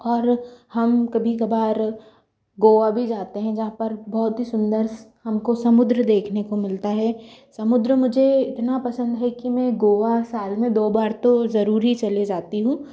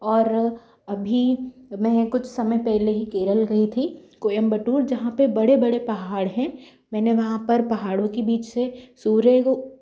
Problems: none marked